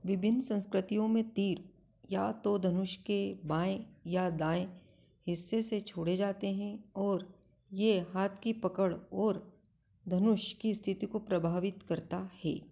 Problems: none marked